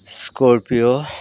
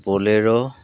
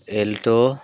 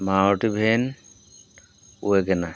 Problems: background sounds at intervals